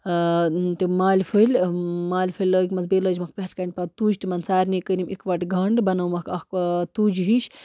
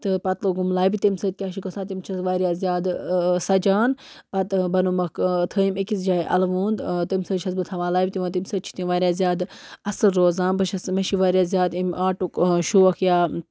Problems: background sounds at intervals